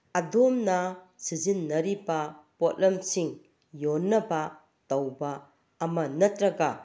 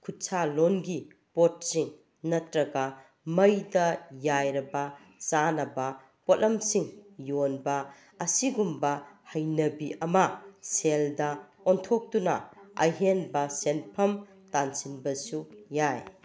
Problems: background conversations at intervals